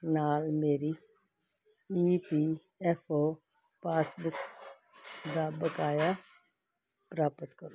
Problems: constant background noise